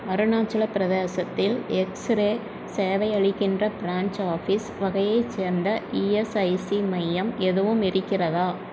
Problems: none marked